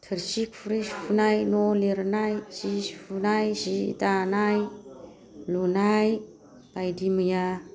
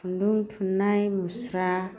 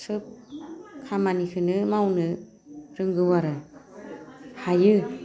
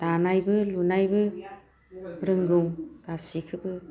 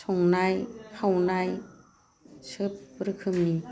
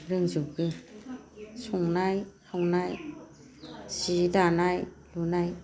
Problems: low volume